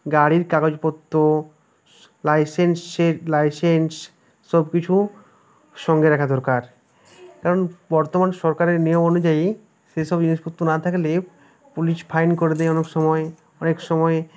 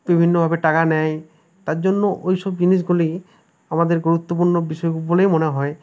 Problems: background conversations at intervals